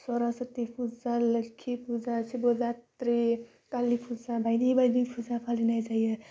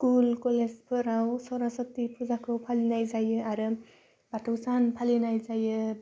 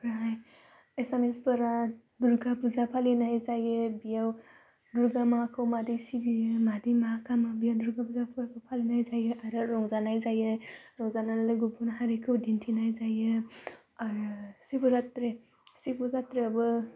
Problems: constant background noise